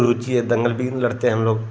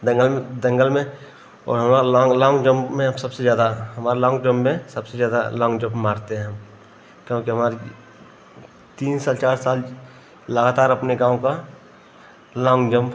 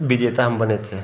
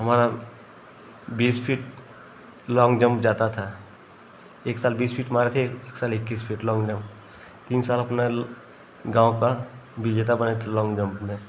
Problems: none marked